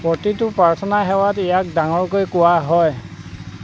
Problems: none marked